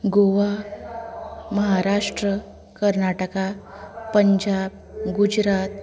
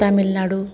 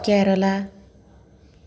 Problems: background conversations at intervals